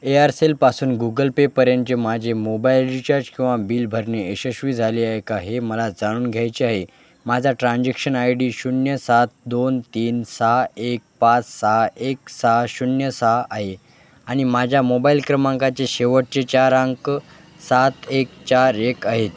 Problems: none marked